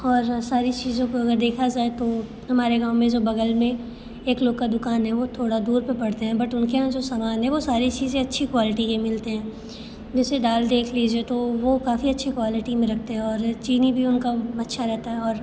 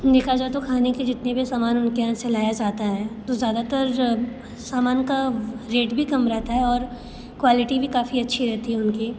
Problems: constant background noise